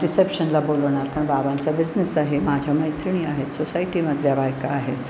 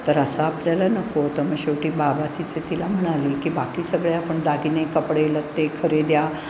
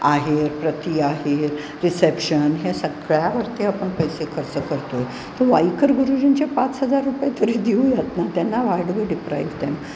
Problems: constant background noise